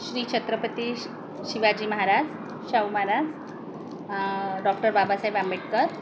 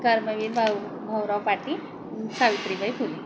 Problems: none marked